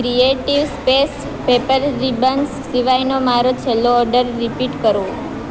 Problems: constant background noise